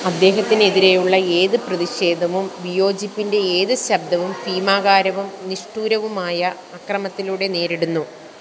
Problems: constant background noise